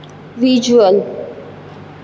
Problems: none marked